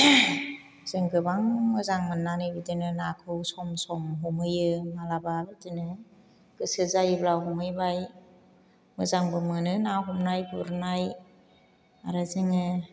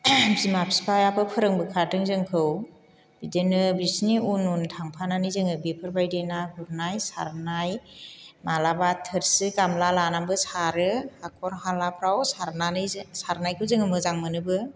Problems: none marked